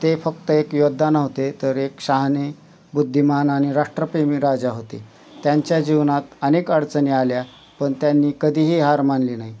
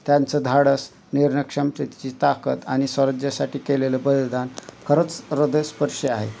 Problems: none marked